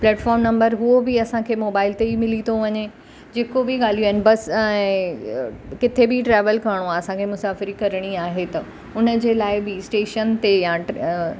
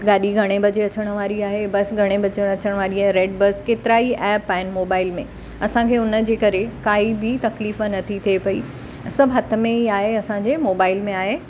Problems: constant background noise